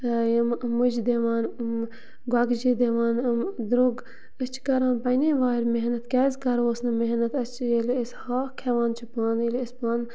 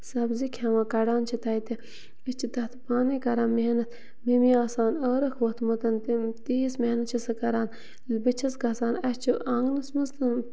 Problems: constant background noise, continuous background conversations